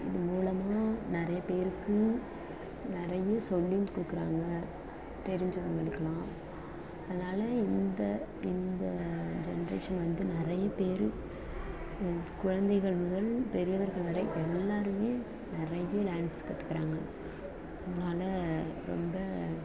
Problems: constant background noise